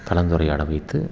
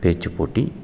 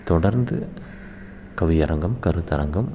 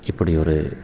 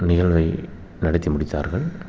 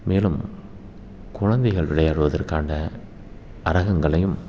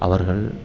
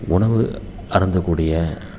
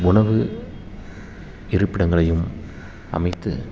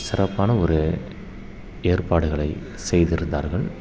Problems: constant background noise